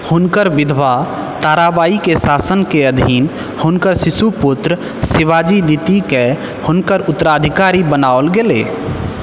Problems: background sounds at intervals